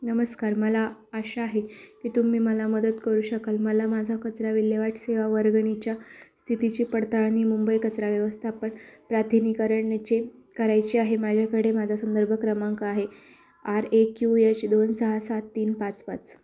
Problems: constant background noise, background conversations at intervals